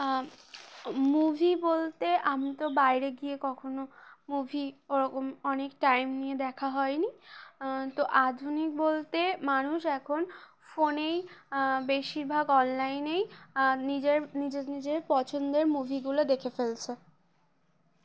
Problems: none marked